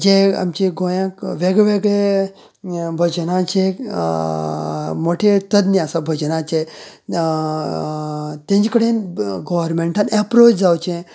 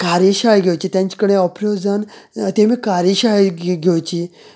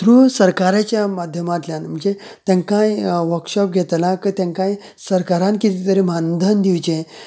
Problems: none marked